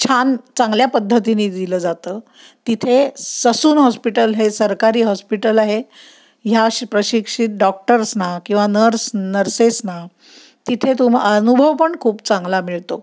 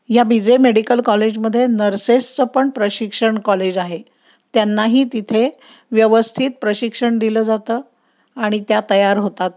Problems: none marked